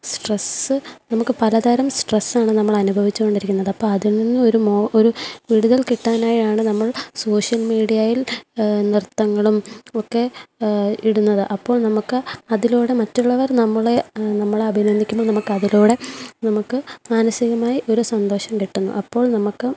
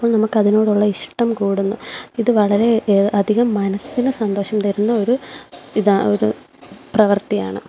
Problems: background sounds at intervals